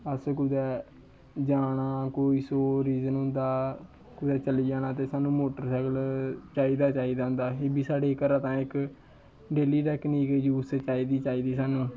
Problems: none marked